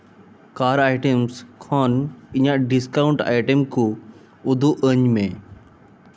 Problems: none marked